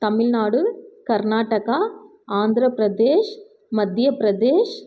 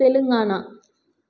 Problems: none marked